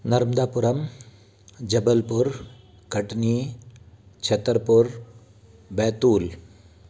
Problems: constant background noise